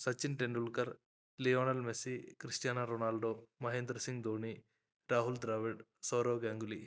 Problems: none marked